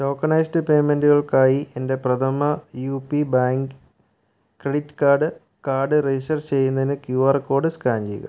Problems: none marked